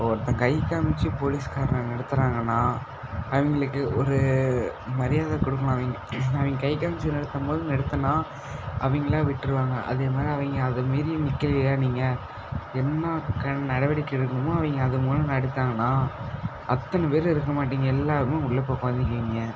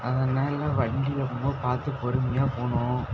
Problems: constant background noise